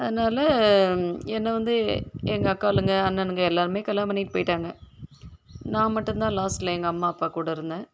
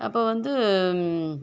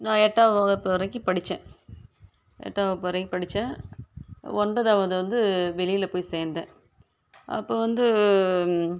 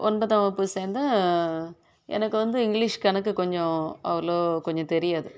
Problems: constant background noise